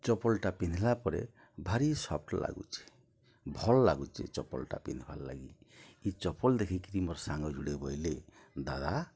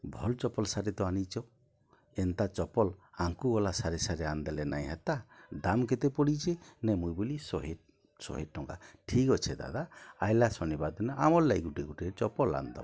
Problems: none marked